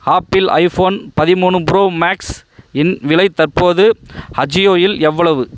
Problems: background sounds at intervals